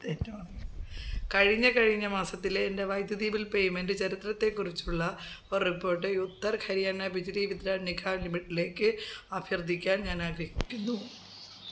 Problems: background conversations at intervals